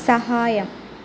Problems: constant background noise, low volume